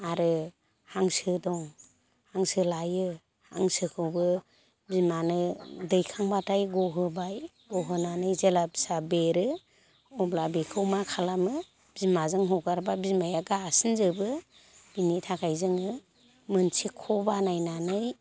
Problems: constant background noise